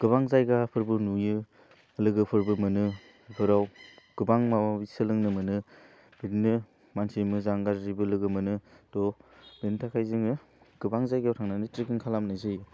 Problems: none marked